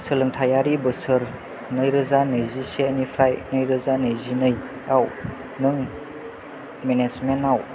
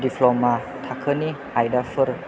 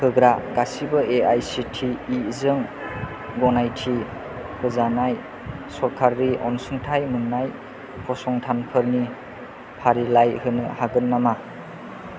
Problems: low volume